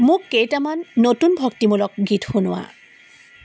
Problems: background sounds at intervals